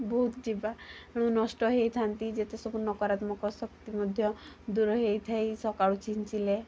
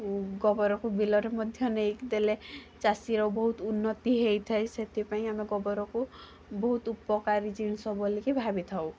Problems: constant background noise, background conversations at intervals